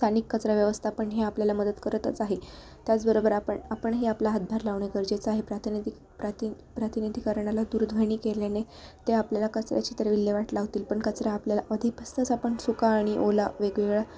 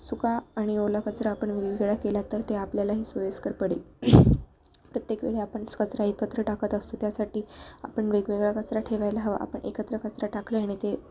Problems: none marked